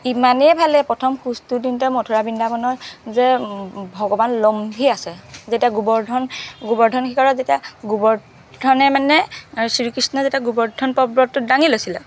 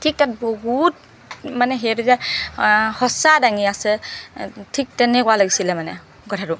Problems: background sounds at intervals